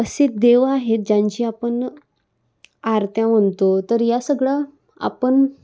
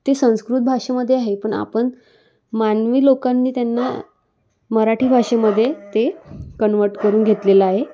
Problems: constant background noise